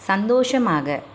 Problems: none marked